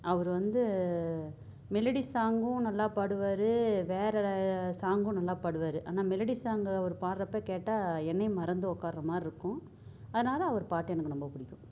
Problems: low volume